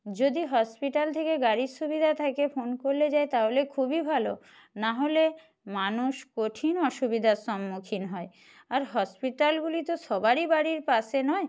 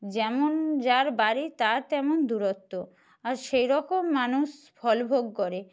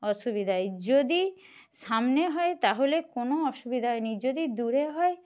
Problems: none marked